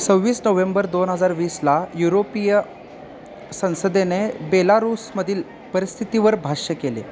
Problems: none marked